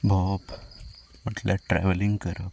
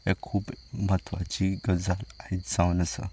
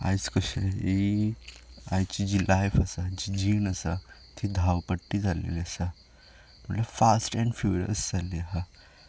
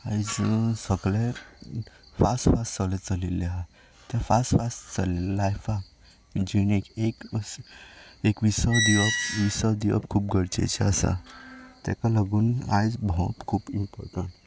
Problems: background sounds at intervals